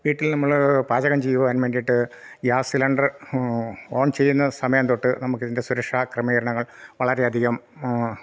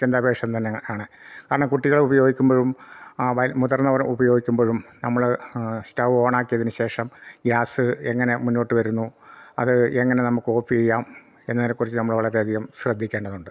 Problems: none marked